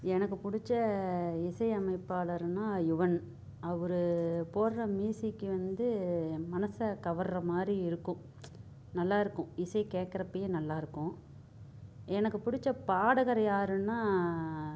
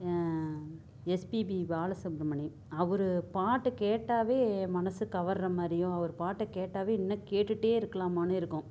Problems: low volume